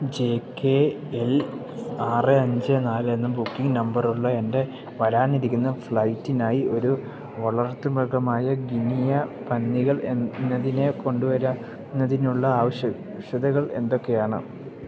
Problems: none marked